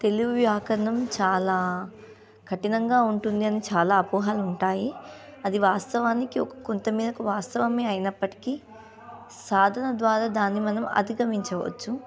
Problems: background sounds at intervals